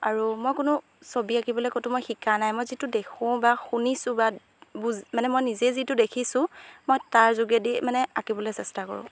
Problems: background sounds at intervals